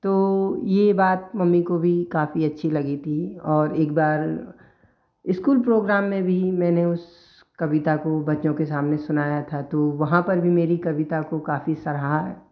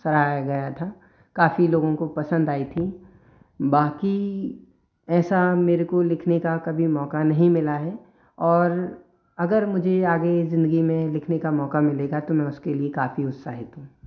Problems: none marked